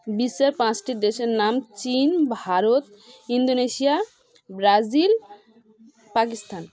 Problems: continuous background conversations